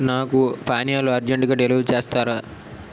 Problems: constant background noise